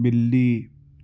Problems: none marked